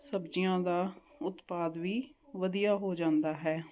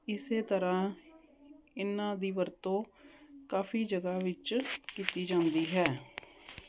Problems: none marked